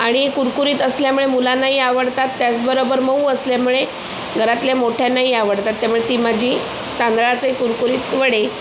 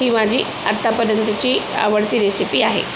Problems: constant background noise